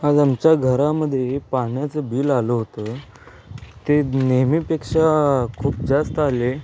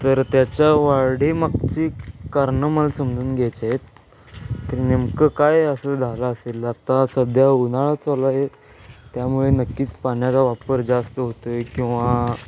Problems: constant background noise, background conversations at intervals